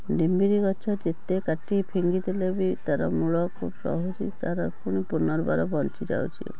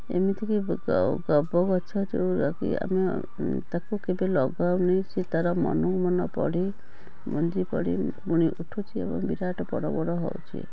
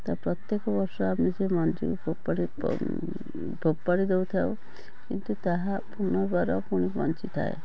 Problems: none marked